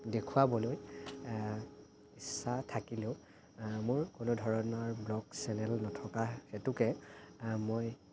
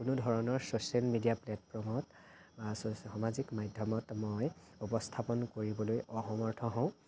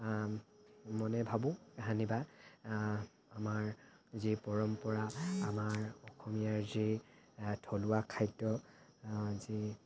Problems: constant background noise